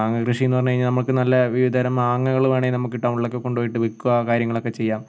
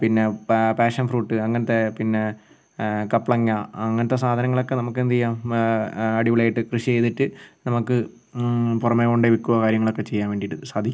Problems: none marked